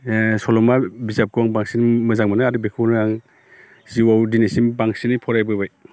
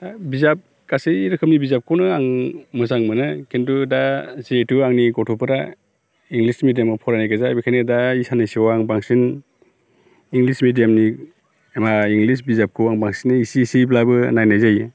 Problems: none marked